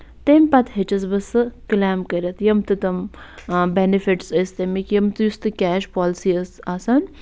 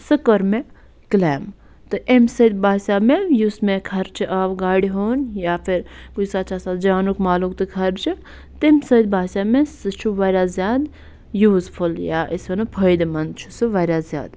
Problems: none marked